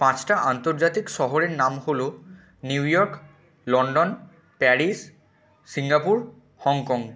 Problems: none marked